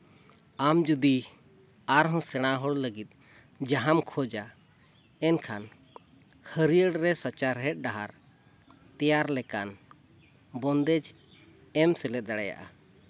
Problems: none marked